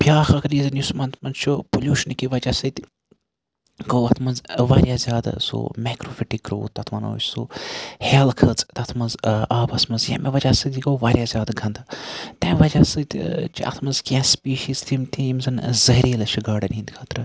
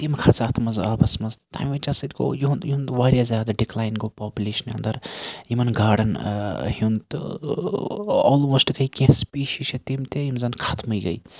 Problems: background sounds at intervals